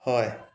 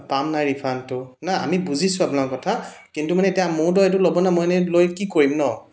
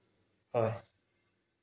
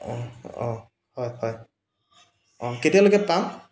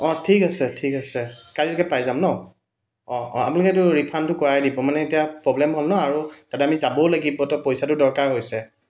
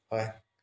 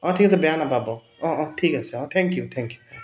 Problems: none marked